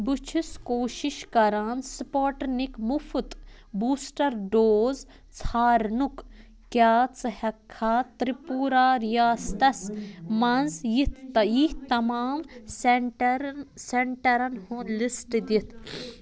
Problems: constant background noise